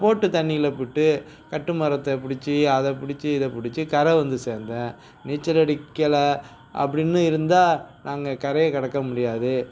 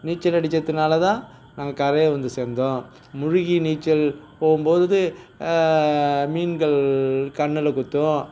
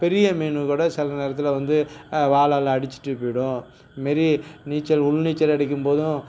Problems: none marked